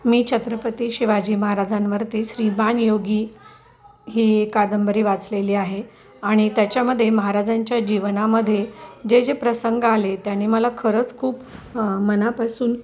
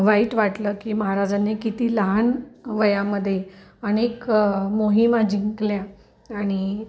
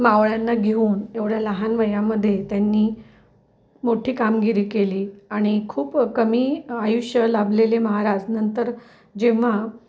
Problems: none marked